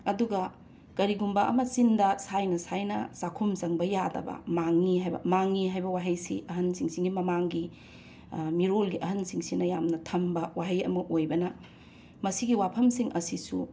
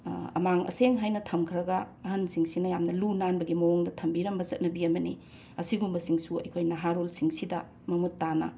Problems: none marked